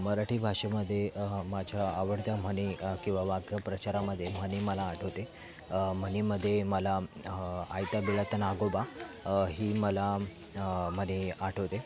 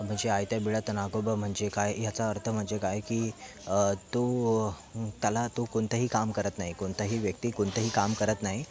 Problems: background sounds at intervals, background conversations at intervals